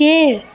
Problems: background conversations at intervals